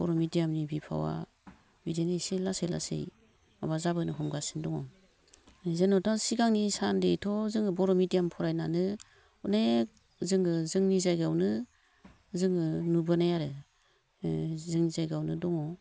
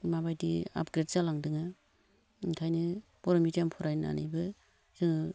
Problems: low volume